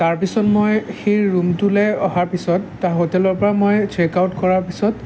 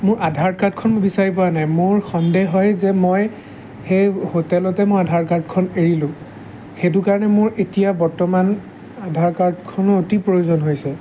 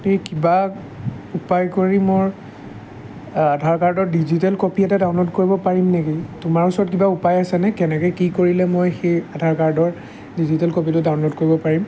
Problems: none marked